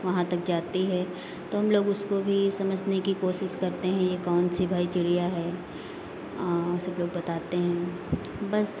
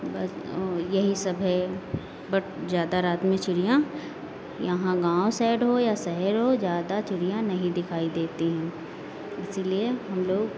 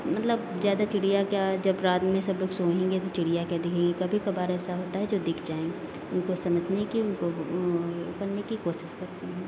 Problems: constant background noise